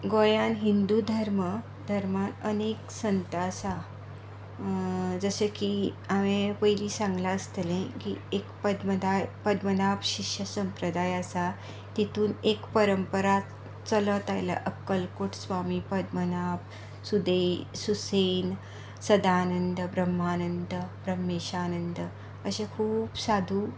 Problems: background sounds at intervals